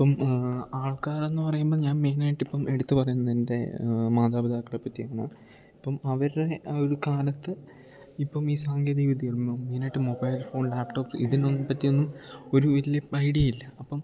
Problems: none marked